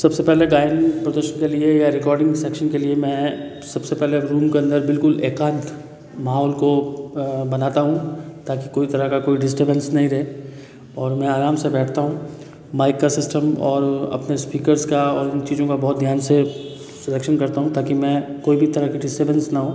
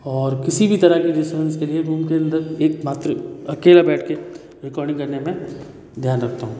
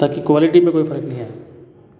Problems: none marked